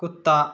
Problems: none marked